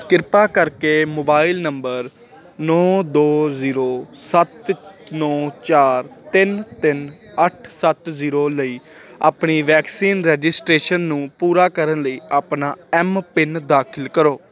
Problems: continuous background conversations